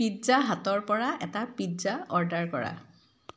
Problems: background sounds at intervals